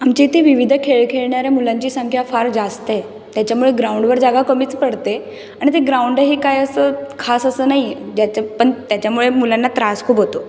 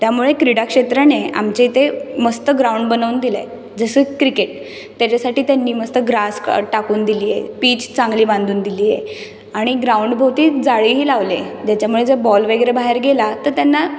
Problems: none marked